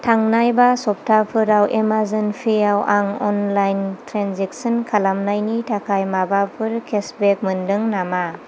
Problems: constant background noise